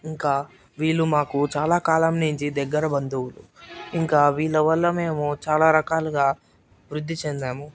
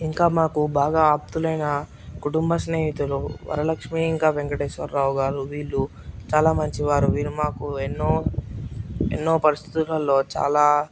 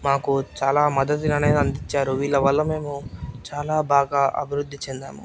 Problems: none marked